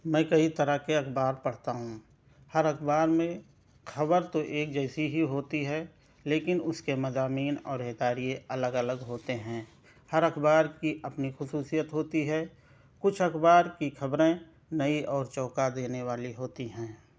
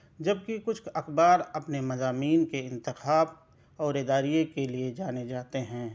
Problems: none marked